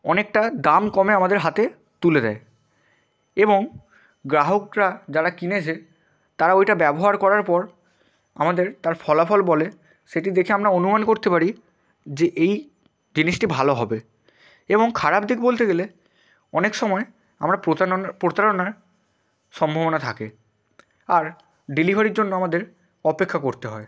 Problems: constant background noise